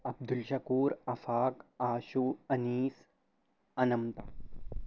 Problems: constant background noise, low volume